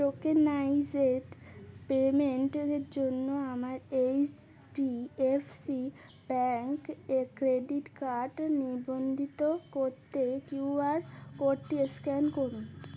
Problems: constant background noise, background conversations at intervals